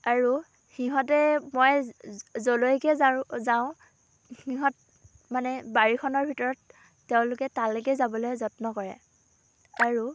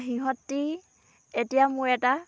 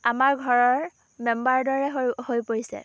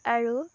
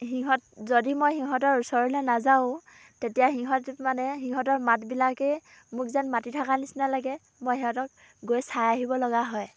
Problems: background conversations at intervals